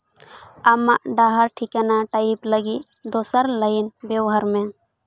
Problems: none marked